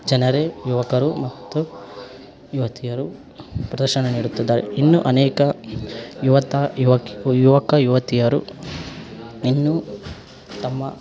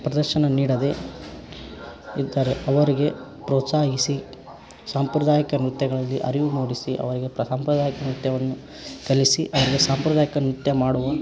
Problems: background sounds at intervals